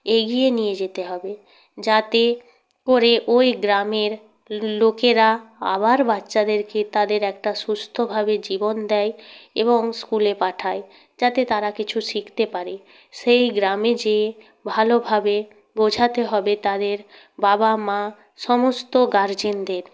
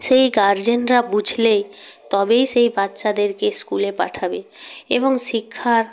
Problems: background sounds at intervals